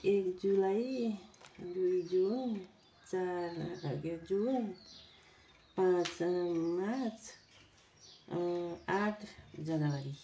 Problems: none marked